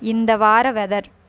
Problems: none marked